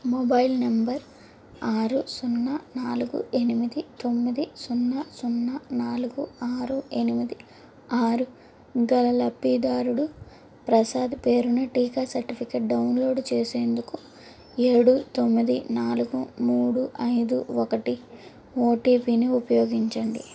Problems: constant background noise